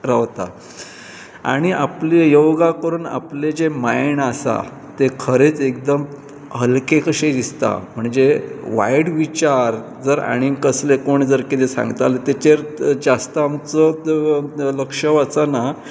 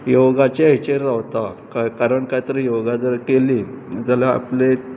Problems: constant background noise, background conversations at intervals